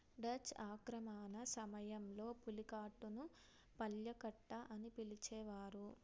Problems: low volume